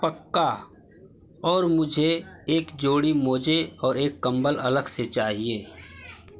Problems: constant background noise